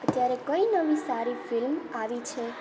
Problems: continuous background conversations, low volume